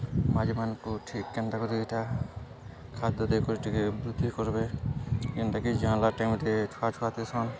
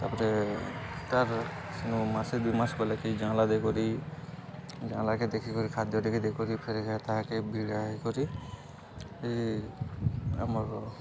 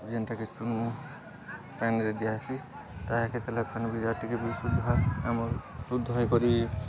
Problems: constant background noise, continuous background conversations